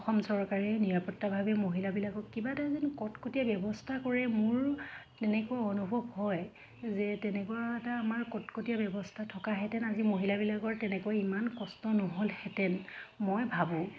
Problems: constant background noise, background conversations at intervals